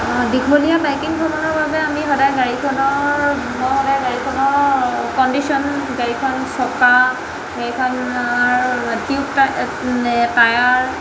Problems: constant background noise